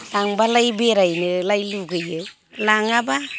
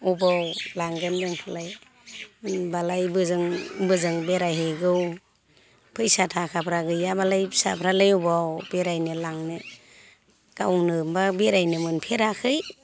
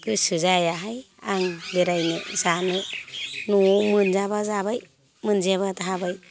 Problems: constant background noise